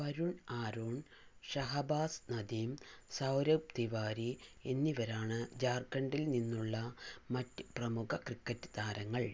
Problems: low volume